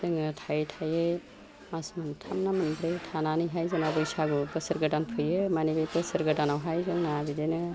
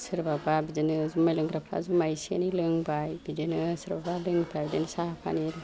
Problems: none marked